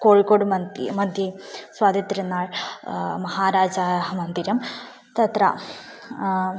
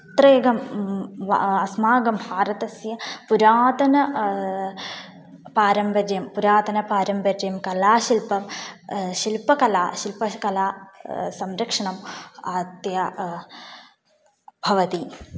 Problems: none marked